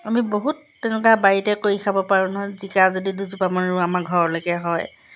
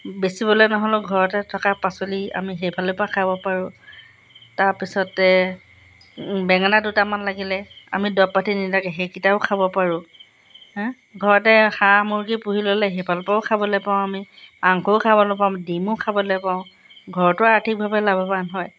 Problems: background sounds at intervals